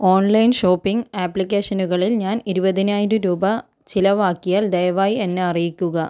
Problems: none marked